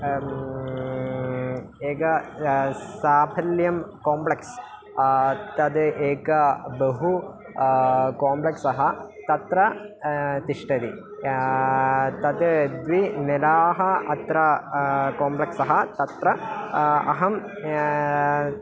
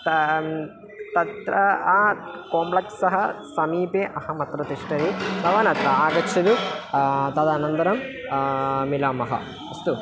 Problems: constant background noise, background conversations at intervals